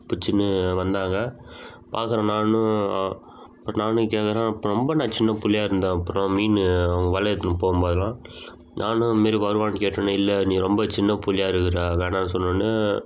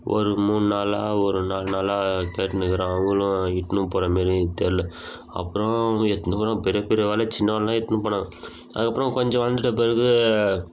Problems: constant background noise